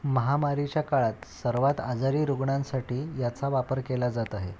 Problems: none marked